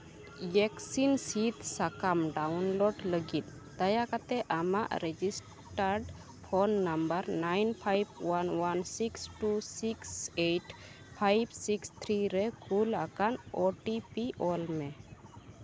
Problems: none marked